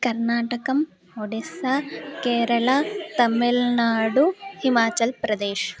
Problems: continuous background conversations